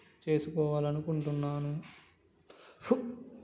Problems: background conversations at intervals